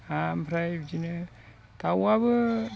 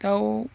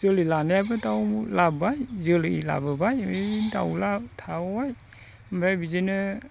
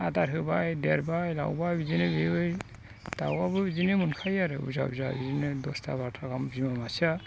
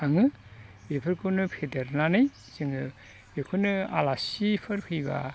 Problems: constant background noise